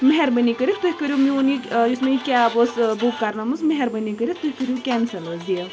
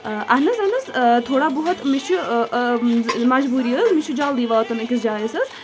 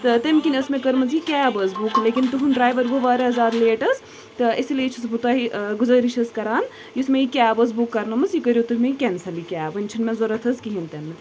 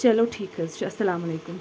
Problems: constant background noise